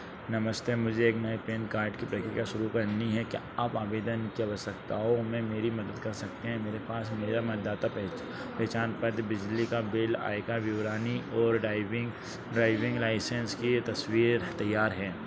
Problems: none marked